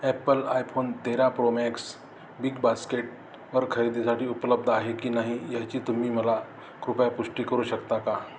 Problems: background sounds at intervals